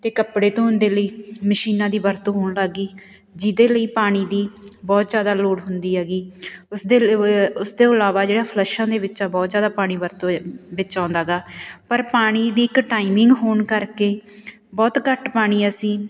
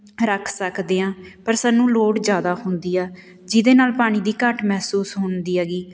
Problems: background sounds at intervals